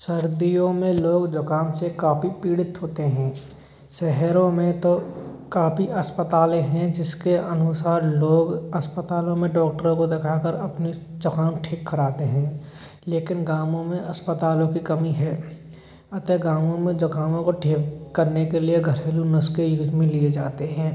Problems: none marked